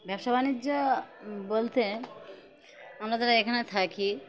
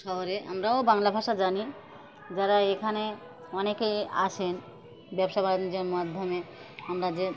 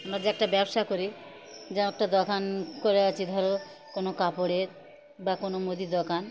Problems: constant background noise, continuous background conversations